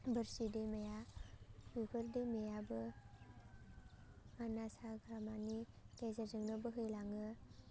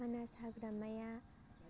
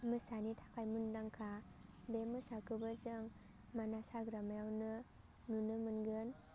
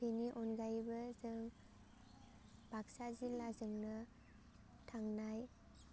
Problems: low volume